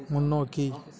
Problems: background conversations at intervals